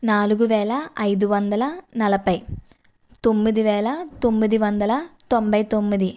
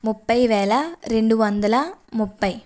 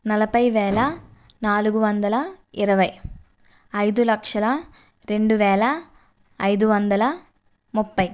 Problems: none marked